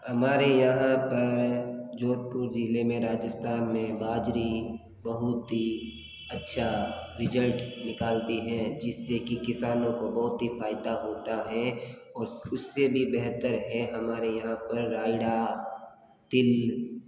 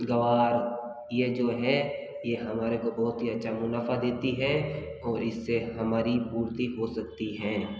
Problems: background sounds at intervals